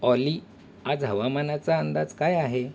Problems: background sounds at intervals